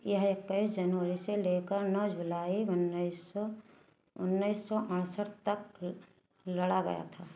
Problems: low volume